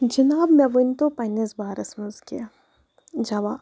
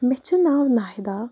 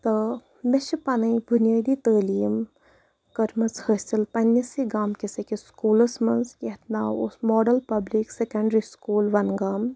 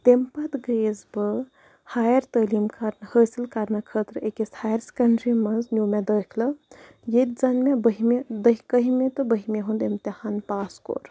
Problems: none marked